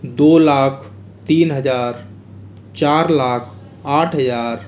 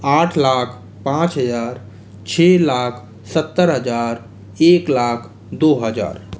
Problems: constant background noise